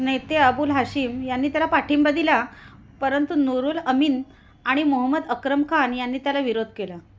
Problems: none marked